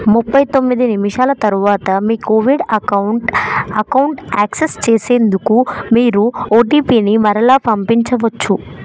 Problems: background conversations at intervals